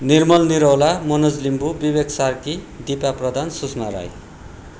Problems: none marked